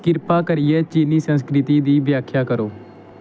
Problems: none marked